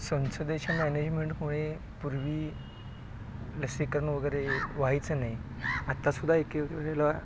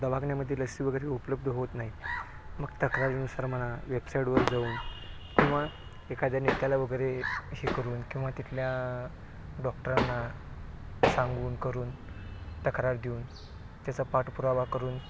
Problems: low volume